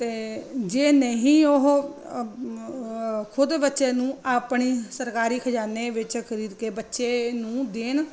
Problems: none marked